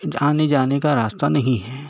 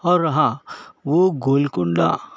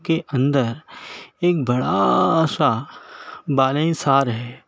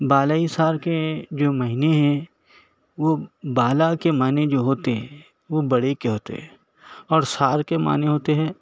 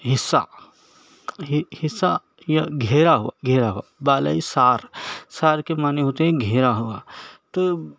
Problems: background sounds at intervals